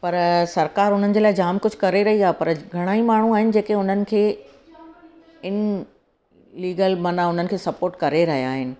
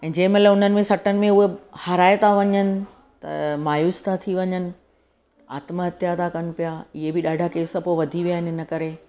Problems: background sounds at intervals, background conversations at intervals